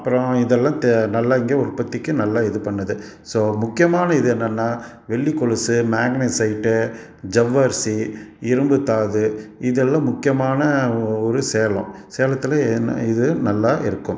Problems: none marked